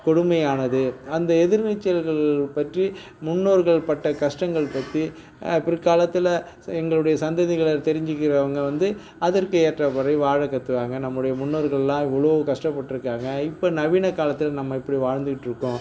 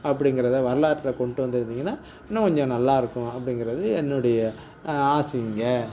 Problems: none marked